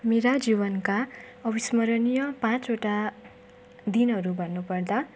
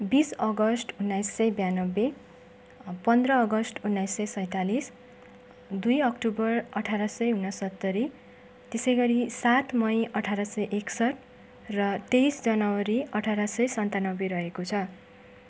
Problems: background sounds at intervals